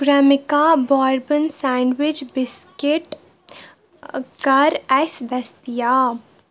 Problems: background sounds at intervals